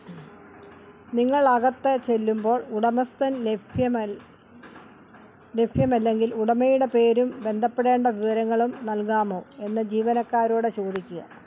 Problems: constant background noise